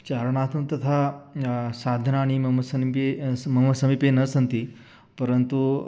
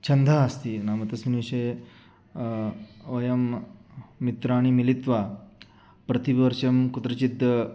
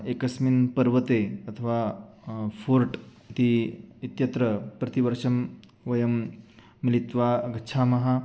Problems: none marked